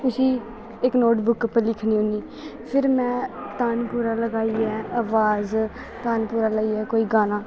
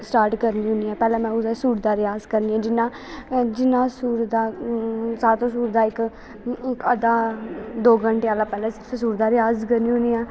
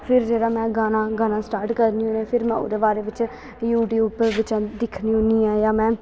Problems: constant background noise